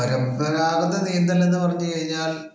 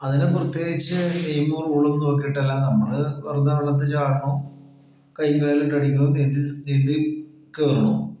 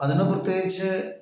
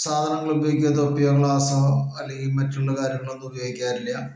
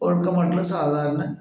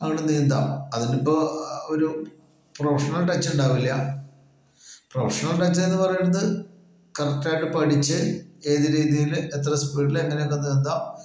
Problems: echo